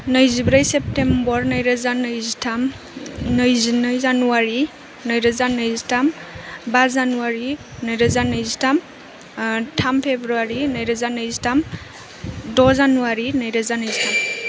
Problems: constant background noise